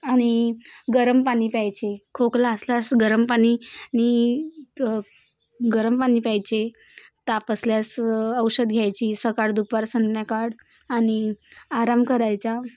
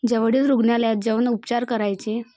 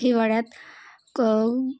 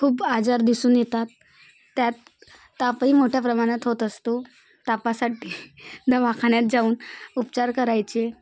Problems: constant background noise